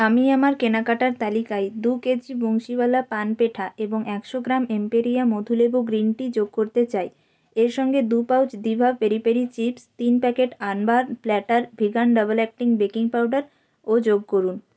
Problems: none marked